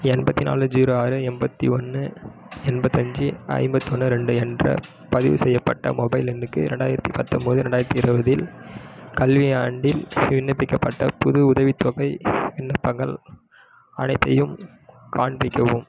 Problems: background sounds at intervals